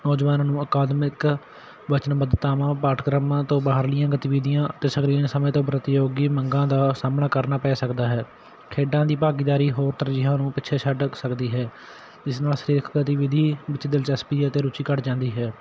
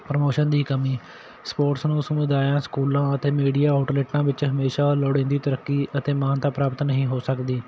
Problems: constant background noise